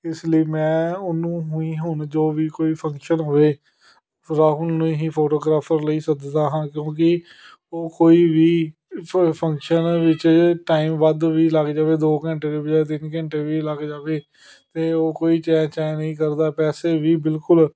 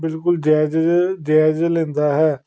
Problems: none marked